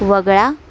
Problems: constant background noise